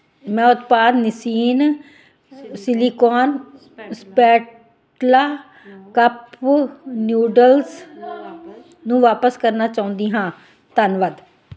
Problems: continuous background conversations